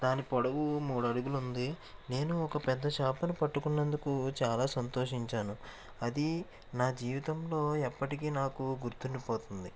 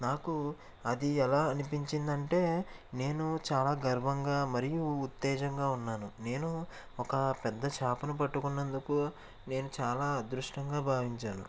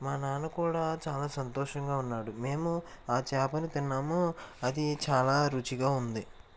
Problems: constant background noise